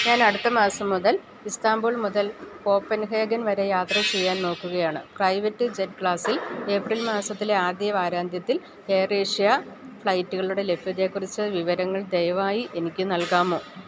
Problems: background sounds at intervals